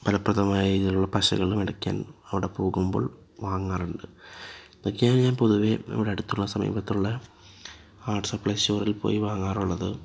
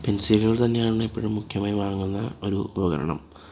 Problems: background sounds at intervals, low volume